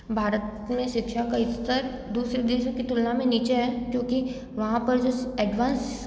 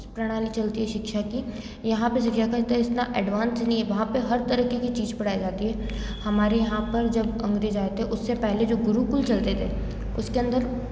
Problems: constant background noise